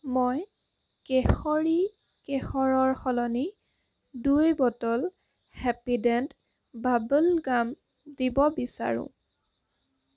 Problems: constant background noise